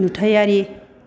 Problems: constant background noise